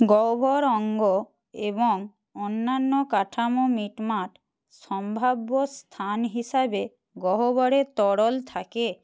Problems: none marked